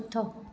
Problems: constant background noise